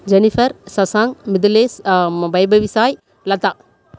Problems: none marked